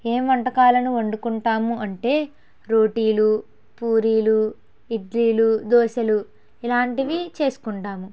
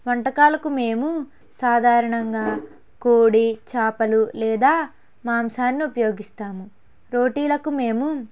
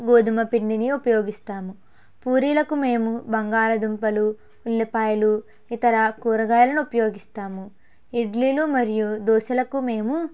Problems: background sounds at intervals